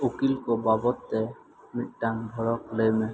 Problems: constant background noise